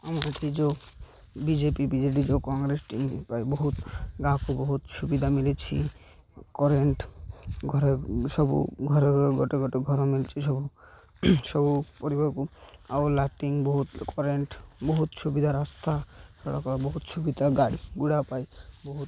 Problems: none marked